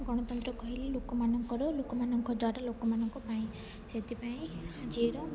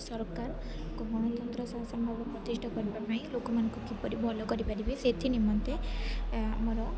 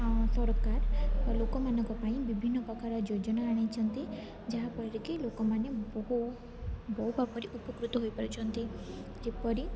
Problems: constant background noise, continuous background conversations